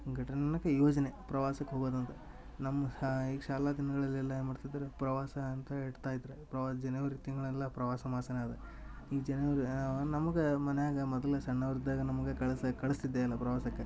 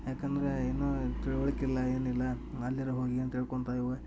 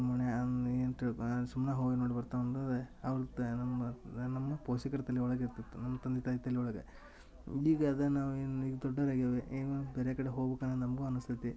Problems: background sounds at intervals, low volume